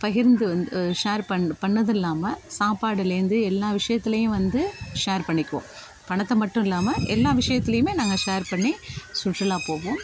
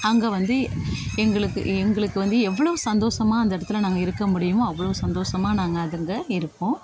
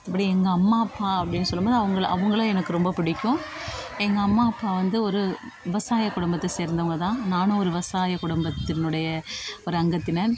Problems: continuous background conversations